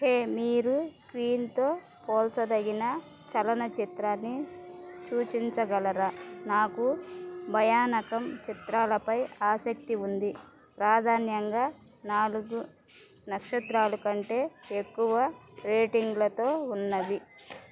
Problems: constant background noise